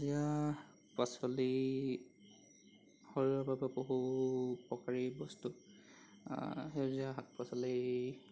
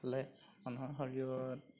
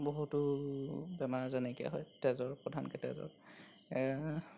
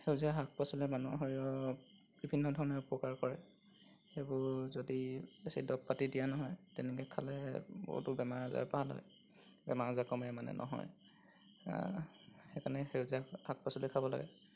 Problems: background sounds at intervals